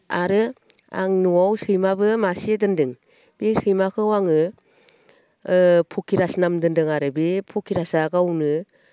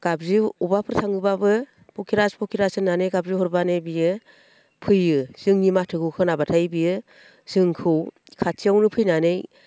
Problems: constant background noise